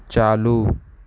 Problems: constant background noise